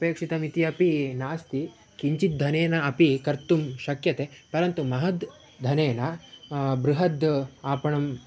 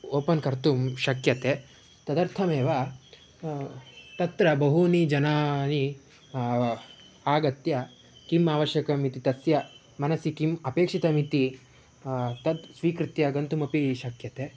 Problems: none marked